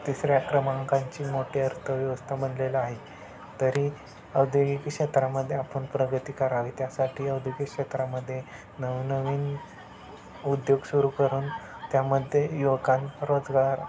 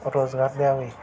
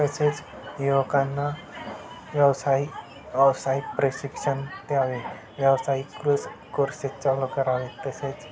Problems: constant background noise, continuous background conversations